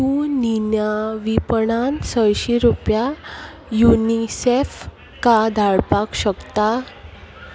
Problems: none marked